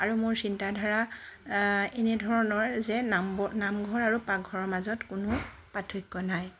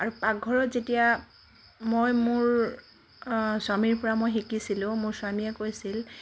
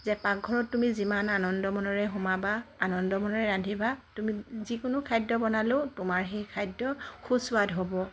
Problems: constant background noise